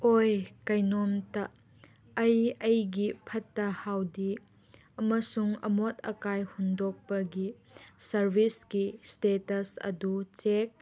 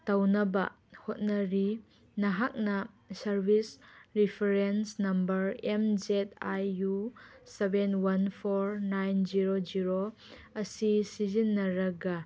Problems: none marked